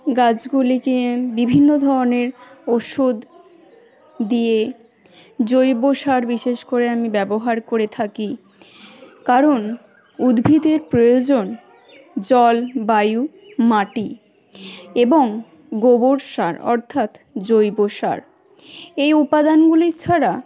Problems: background sounds at intervals, continuous background conversations